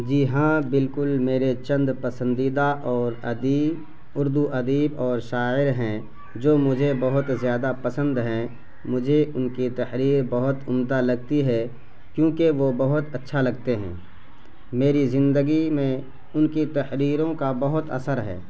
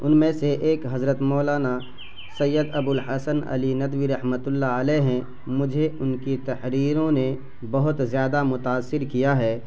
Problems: constant background noise